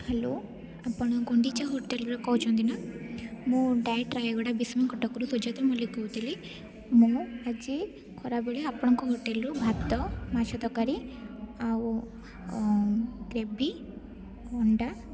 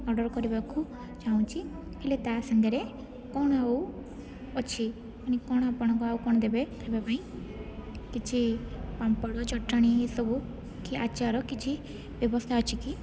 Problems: background sounds at intervals, background conversations at intervals